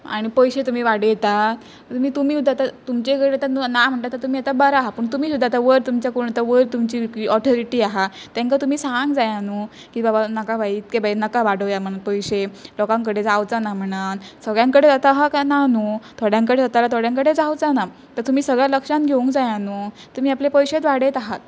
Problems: constant background noise